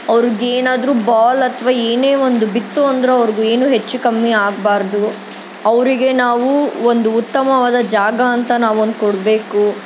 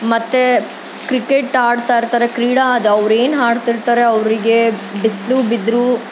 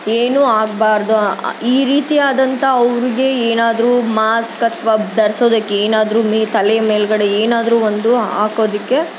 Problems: constant background noise